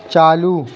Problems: none marked